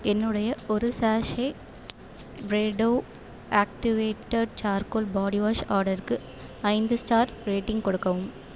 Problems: background sounds at intervals